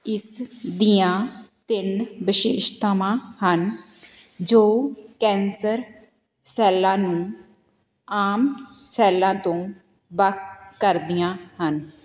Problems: constant background noise